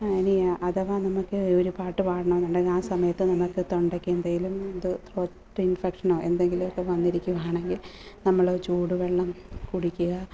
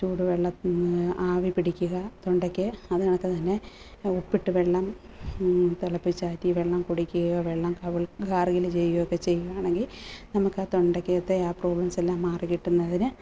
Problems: constant background noise